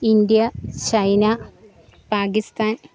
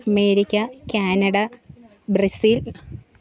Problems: background sounds at intervals, background conversations at intervals